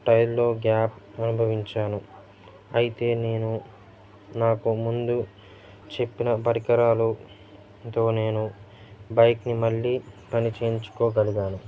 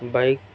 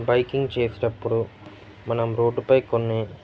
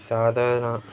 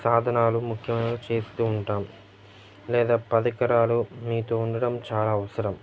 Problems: constant background noise, background conversations at intervals